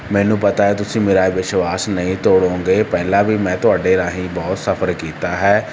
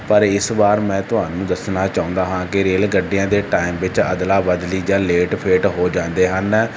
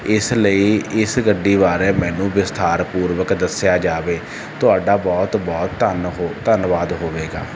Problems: none marked